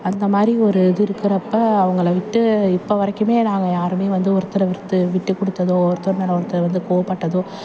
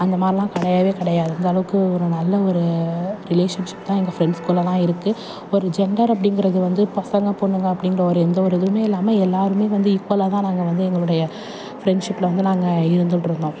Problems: background sounds at intervals, background conversations at intervals